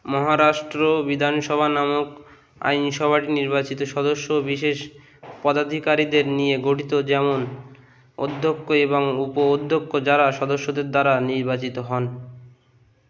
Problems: constant background noise